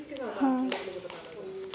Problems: constant background noise